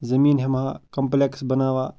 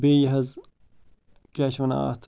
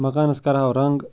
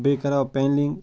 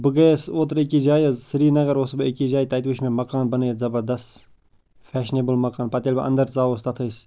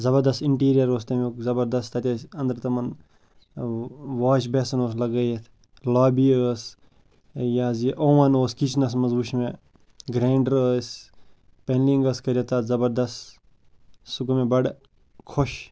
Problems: constant background noise